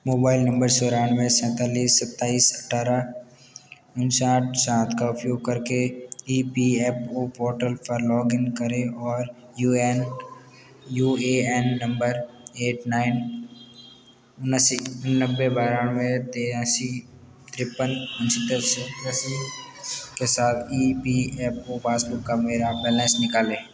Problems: constant background noise